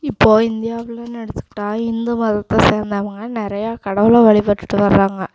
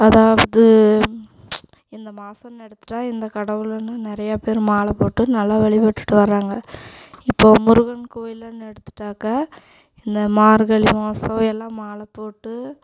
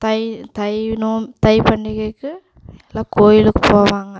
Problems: constant background noise